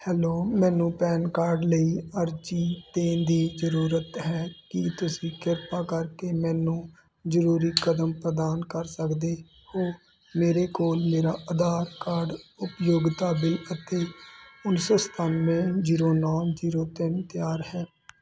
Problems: none marked